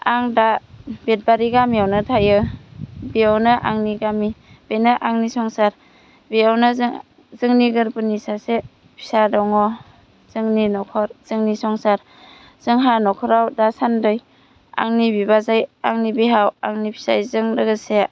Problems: none marked